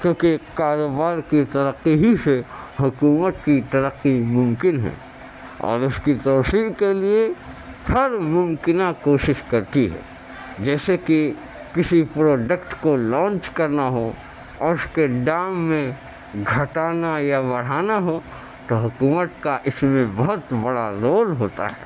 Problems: constant background noise